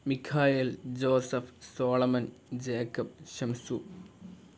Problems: none marked